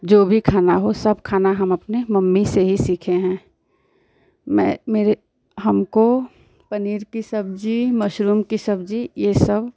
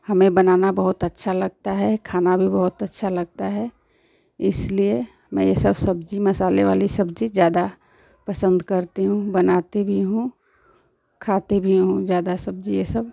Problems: constant background noise